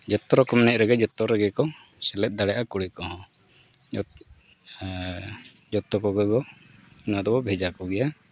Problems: none marked